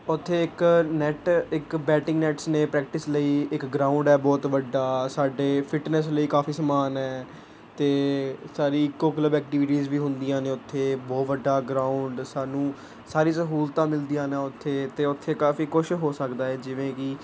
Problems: none marked